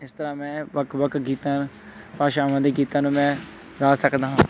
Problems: background conversations at intervals